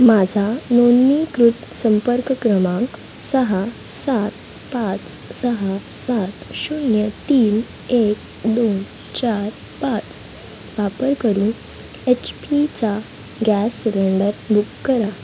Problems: constant background noise, background conversations at intervals